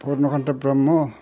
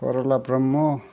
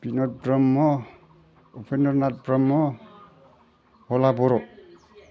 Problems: background sounds at intervals